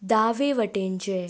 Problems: background sounds at intervals